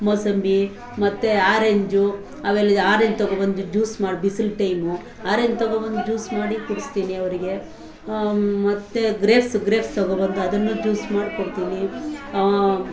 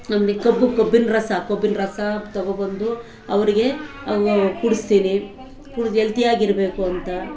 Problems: constant background noise